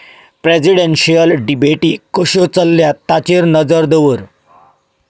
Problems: none marked